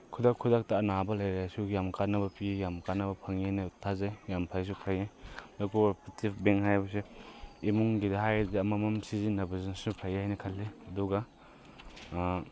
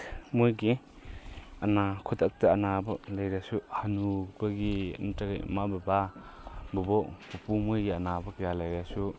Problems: none marked